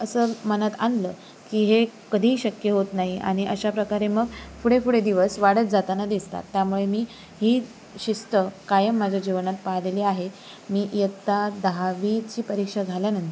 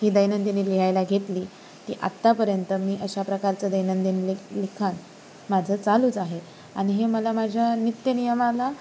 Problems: constant background noise